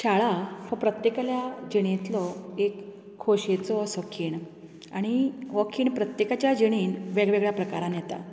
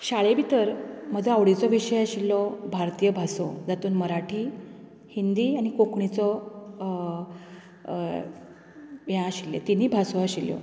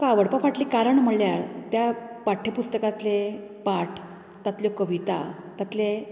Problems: constant background noise